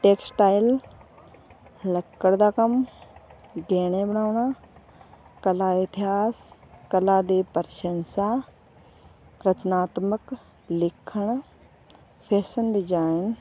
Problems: none marked